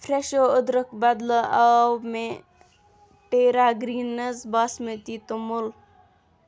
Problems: background sounds at intervals